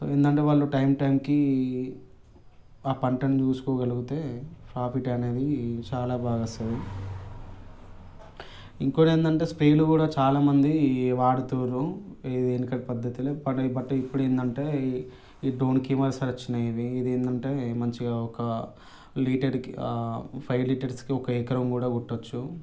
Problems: background sounds at intervals